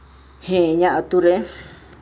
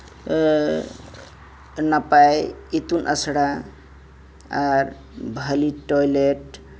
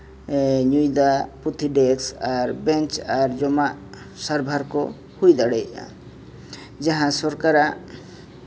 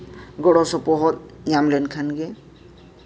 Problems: background sounds at intervals